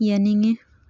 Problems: none marked